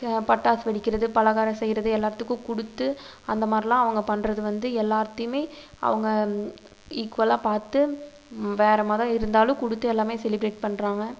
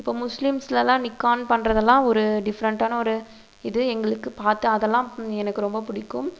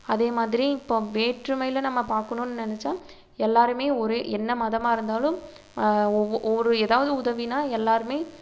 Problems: constant background noise